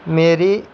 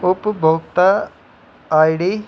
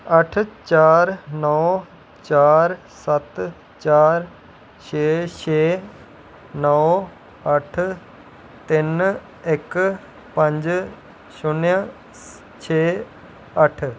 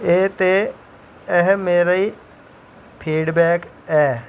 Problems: background sounds at intervals